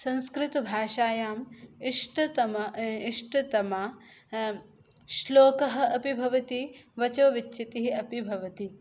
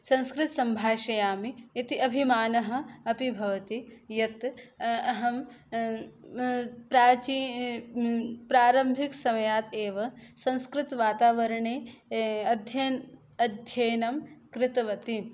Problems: none marked